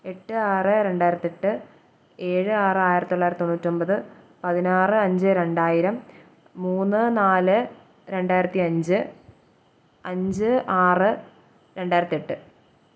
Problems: none marked